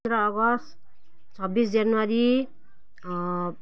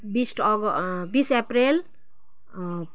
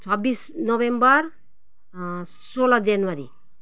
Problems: constant background noise